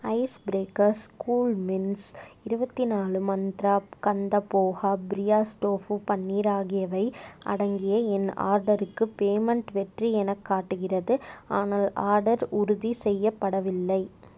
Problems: none marked